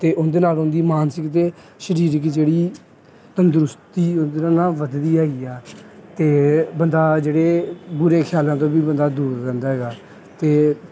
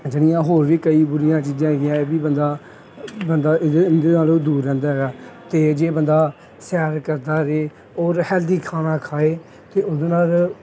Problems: background sounds at intervals, background conversations at intervals